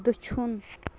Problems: constant background noise, low volume